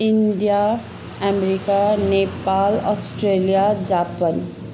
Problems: constant background noise